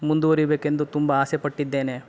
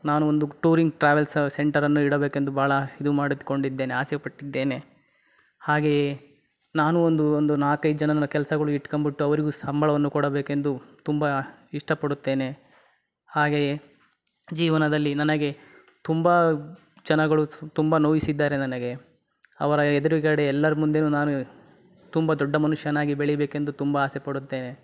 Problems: background sounds at intervals